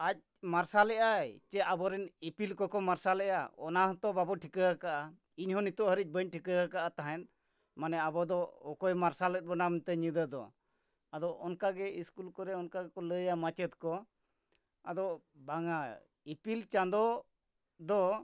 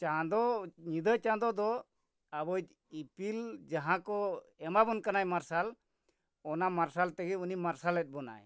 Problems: none marked